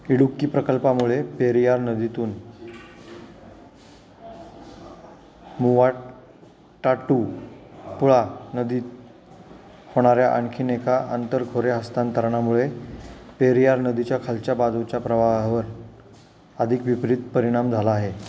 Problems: constant background noise, background conversations at intervals